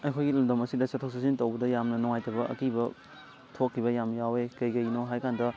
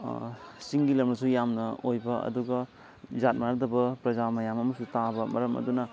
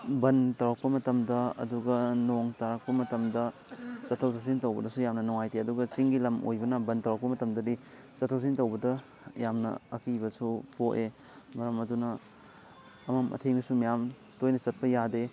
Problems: constant background noise, background conversations at intervals